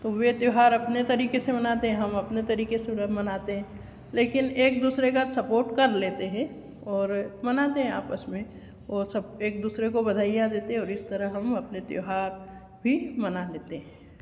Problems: none marked